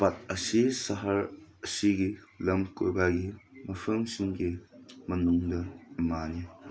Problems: none marked